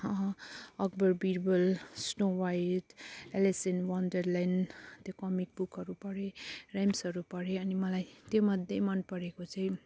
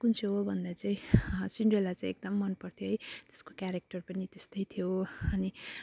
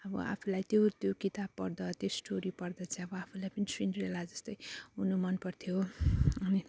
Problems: none marked